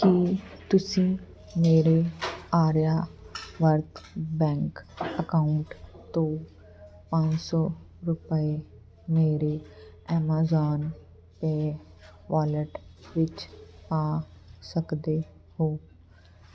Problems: none marked